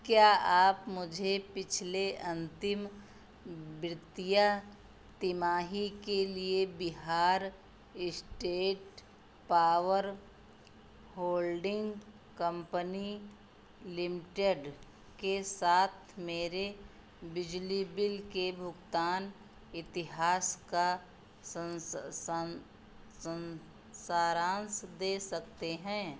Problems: constant background noise